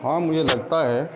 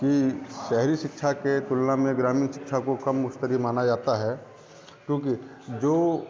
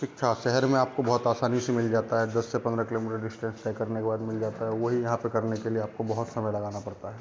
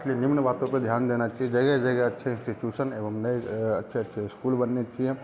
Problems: constant background noise, continuous background conversations